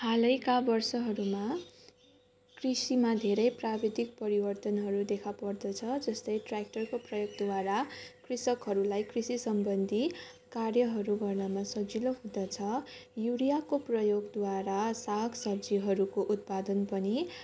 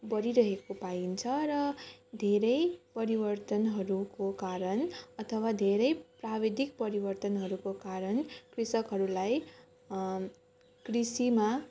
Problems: constant background noise, continuous background conversations